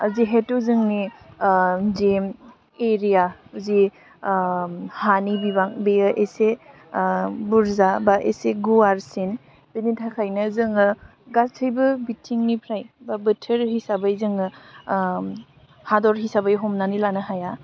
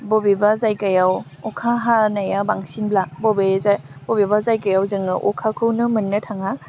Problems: low volume